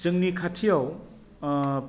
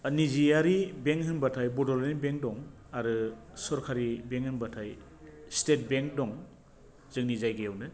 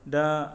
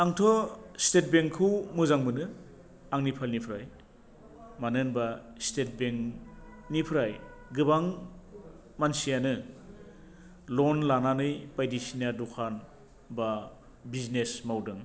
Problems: low volume